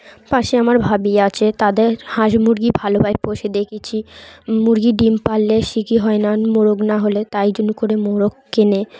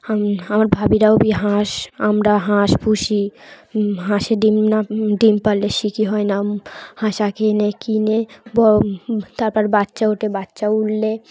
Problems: constant background noise